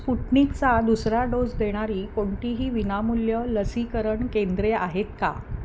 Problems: none marked